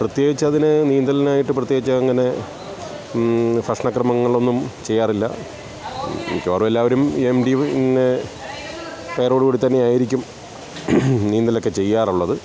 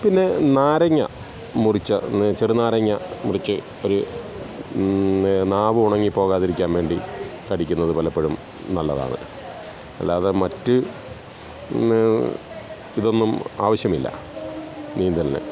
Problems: constant background noise, background conversations at intervals